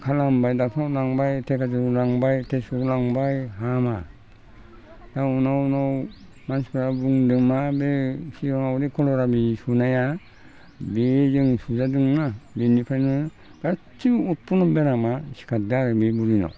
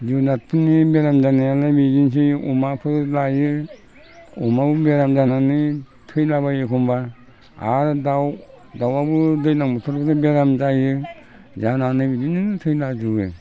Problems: constant background noise